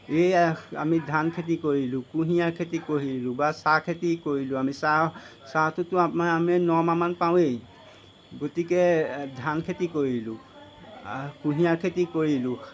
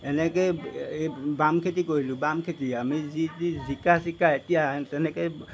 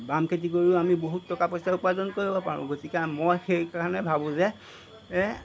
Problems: constant background noise